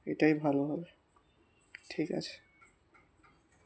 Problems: constant background noise, background conversations at intervals